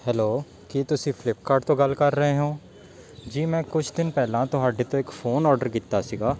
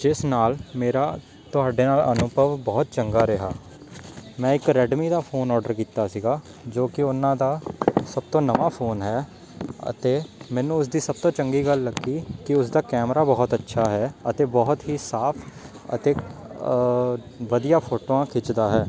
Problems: none marked